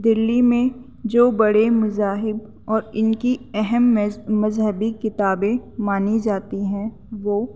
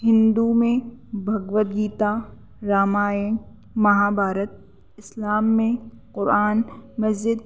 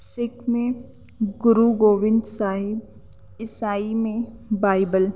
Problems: constant background noise